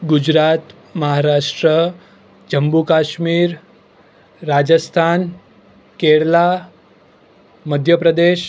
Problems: none marked